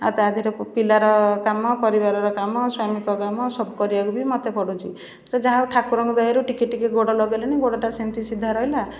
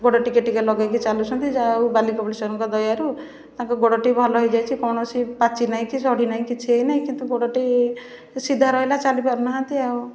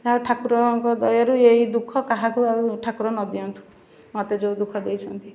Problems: none marked